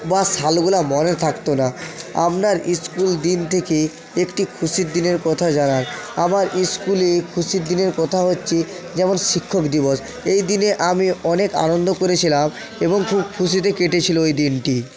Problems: continuous background conversations